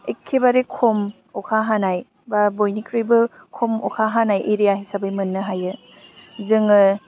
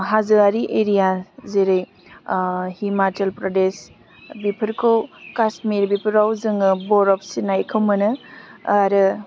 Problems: low volume